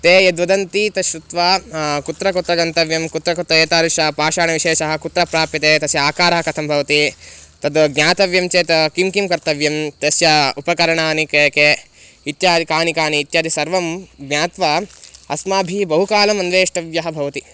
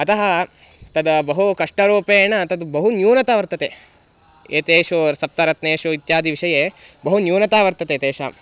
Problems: constant background noise